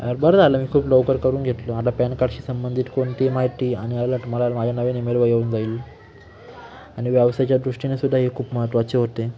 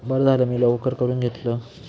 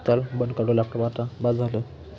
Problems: constant background noise, continuous background conversations